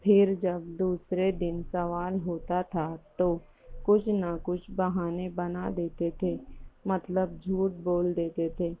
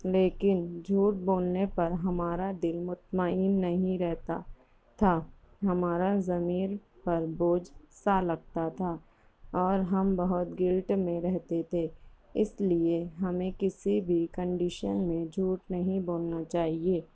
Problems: none marked